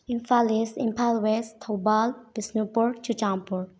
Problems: low volume